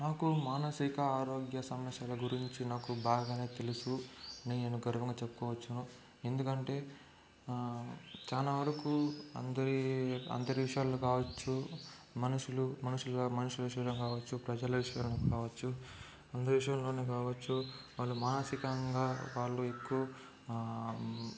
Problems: constant background noise, low volume